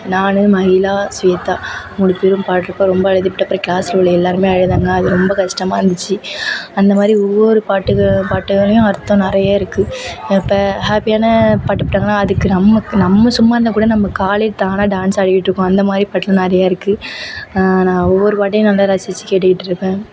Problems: background sounds at intervals